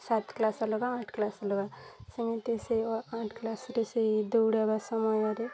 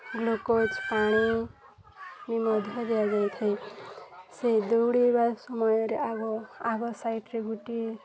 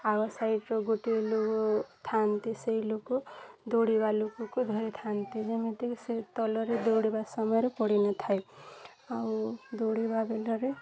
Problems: constant background noise, continuous background conversations